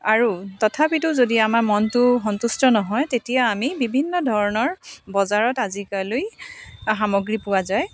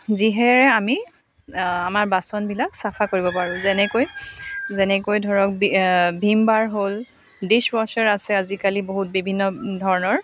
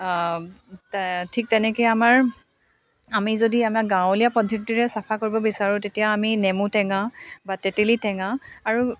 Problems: none marked